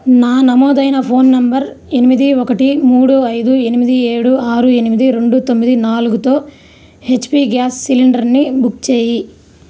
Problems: none marked